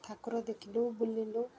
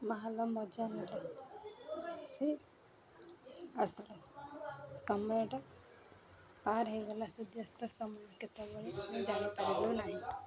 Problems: constant background noise, continuous background conversations